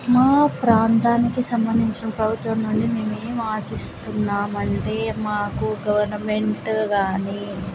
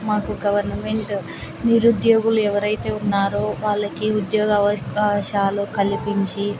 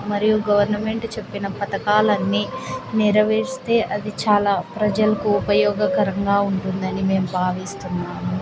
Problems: constant background noise